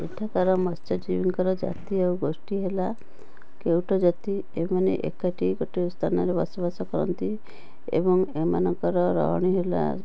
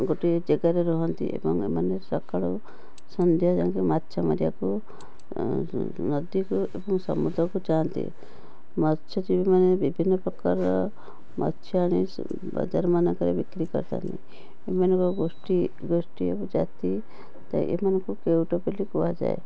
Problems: background sounds at intervals, background conversations at intervals